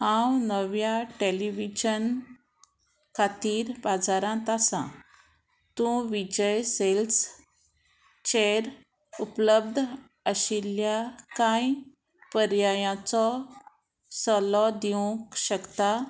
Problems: constant background noise